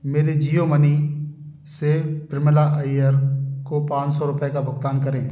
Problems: constant background noise